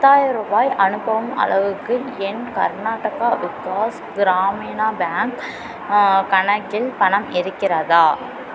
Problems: none marked